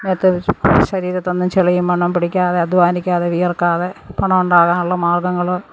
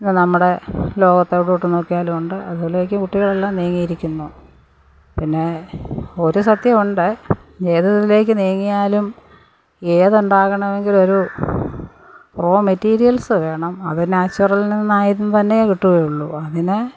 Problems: background sounds at intervals